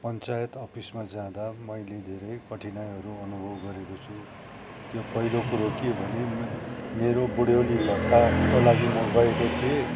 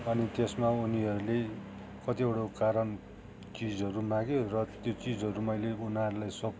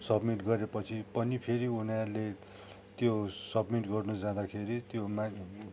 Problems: background sounds at intervals